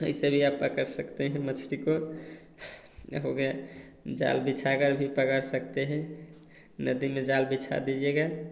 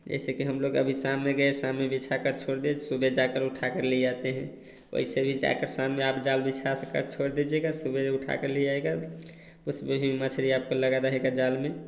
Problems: none marked